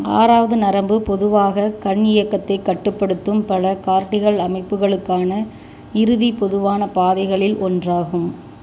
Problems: none marked